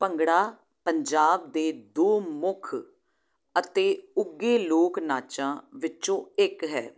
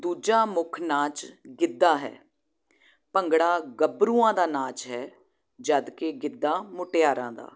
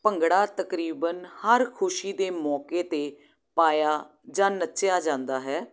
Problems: low volume